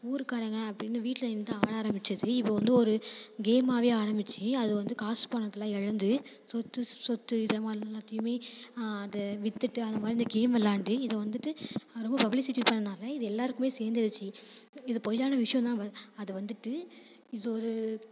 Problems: background sounds at intervals